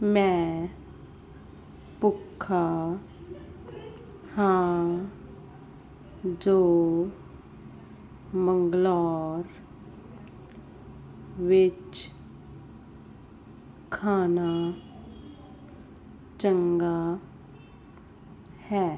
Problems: background sounds at intervals